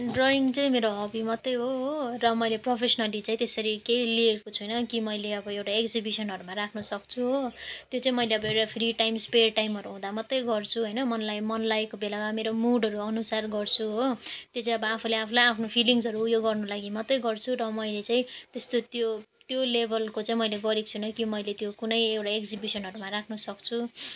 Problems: none marked